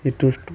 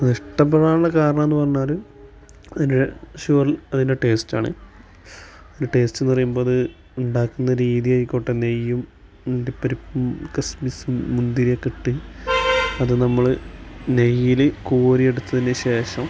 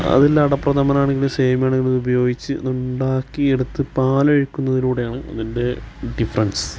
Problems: background sounds at intervals